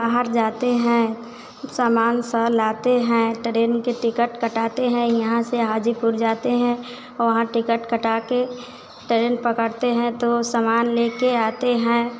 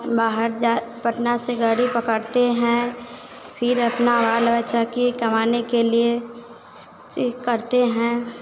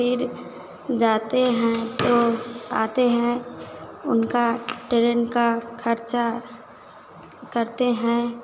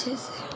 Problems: constant background noise